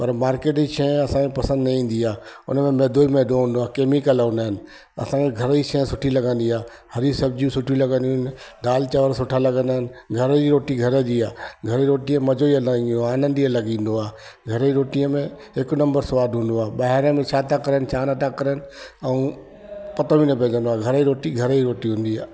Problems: constant background noise, echo